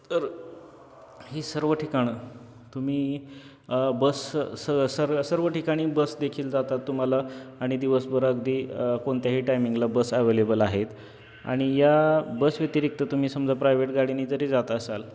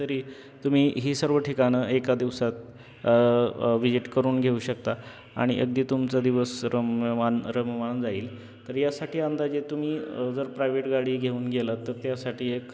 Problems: constant background noise, background conversations at intervals